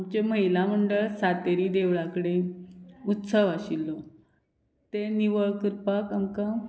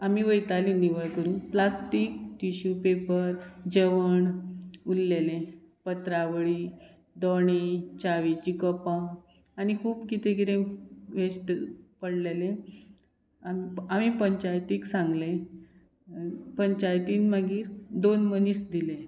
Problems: background sounds at intervals